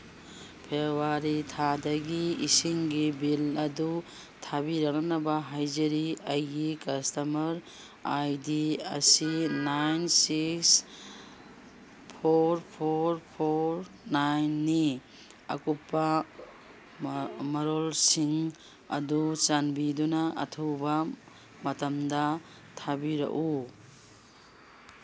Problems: background sounds at intervals